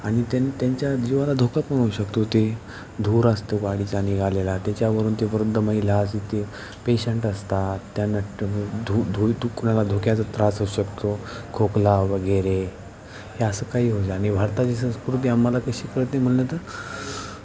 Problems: constant background noise, continuous background conversations